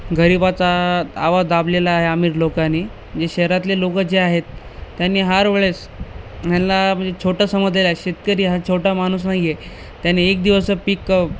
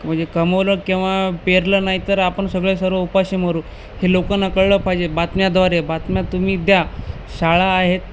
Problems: constant background noise